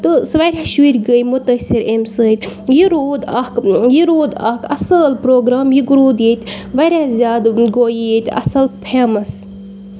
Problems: background sounds at intervals